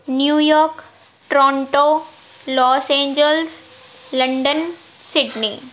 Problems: background sounds at intervals